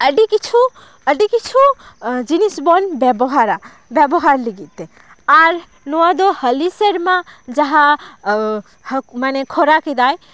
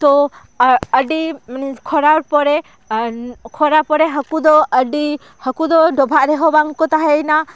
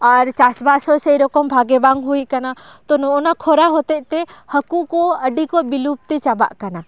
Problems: none marked